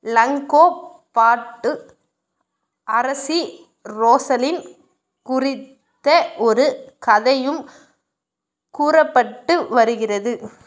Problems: none marked